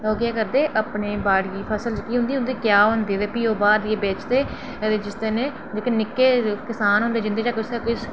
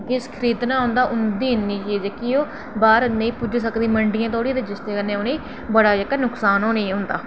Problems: none marked